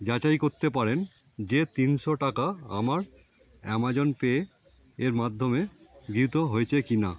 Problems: constant background noise